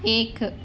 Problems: none marked